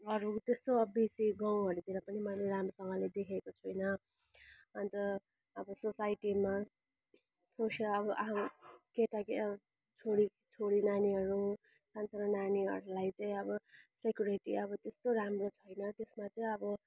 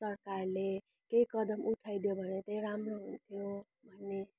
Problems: background sounds at intervals